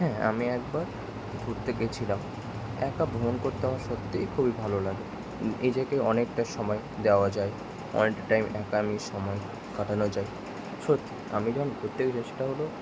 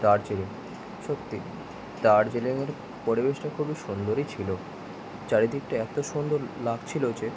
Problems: constant background noise